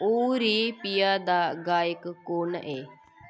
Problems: none marked